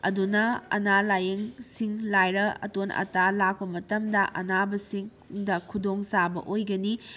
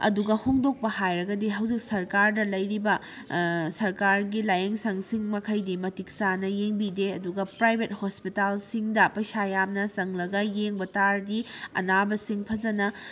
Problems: none marked